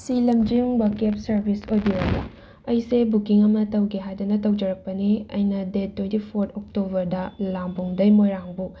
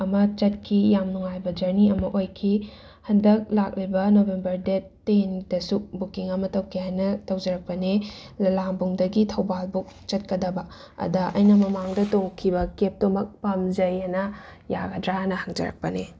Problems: background sounds at intervals